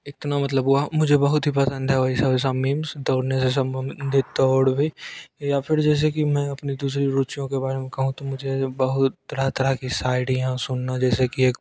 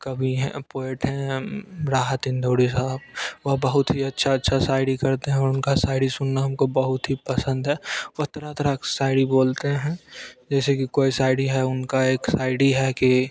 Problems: constant background noise